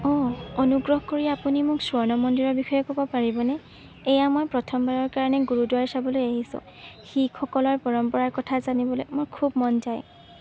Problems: constant background noise, background conversations at intervals